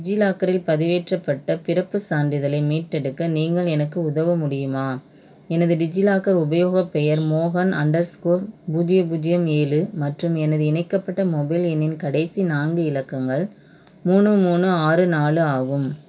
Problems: none marked